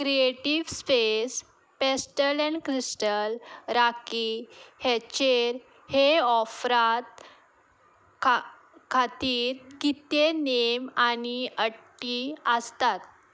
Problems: background sounds at intervals